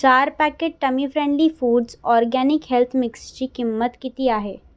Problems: constant background noise